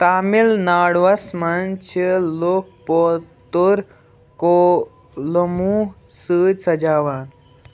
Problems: background sounds at intervals, background conversations at intervals